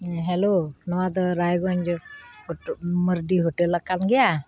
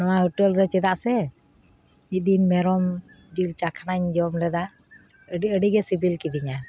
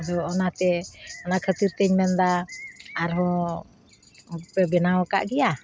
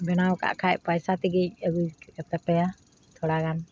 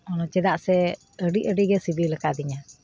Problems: constant background noise